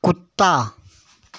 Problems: constant background noise